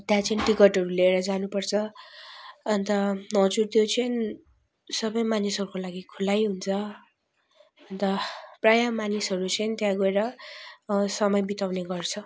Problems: none marked